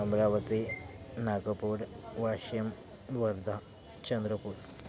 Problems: none marked